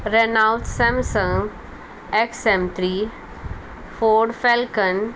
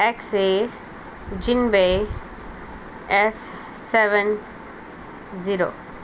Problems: constant background noise